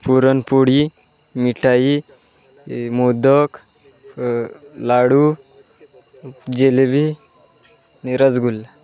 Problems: constant background noise